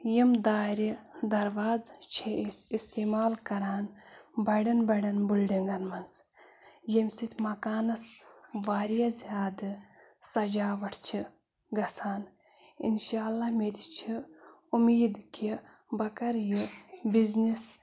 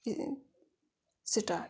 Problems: background sounds at intervals, background conversations at intervals